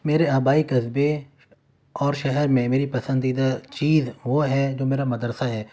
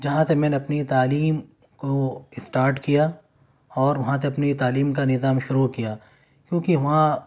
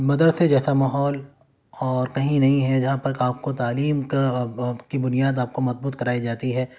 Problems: background sounds at intervals